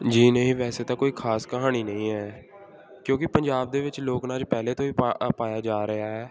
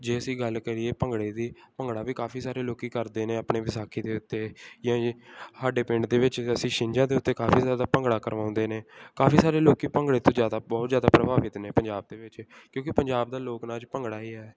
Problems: background sounds at intervals